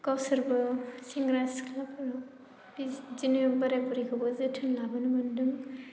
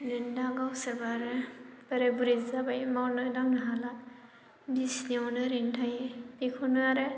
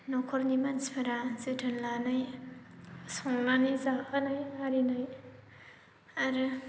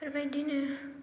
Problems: low volume